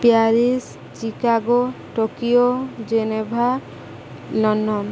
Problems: constant background noise